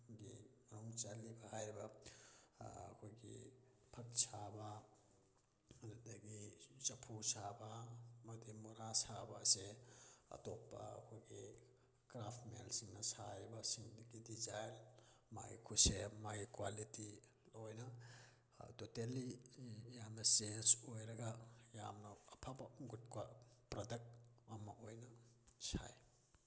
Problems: low volume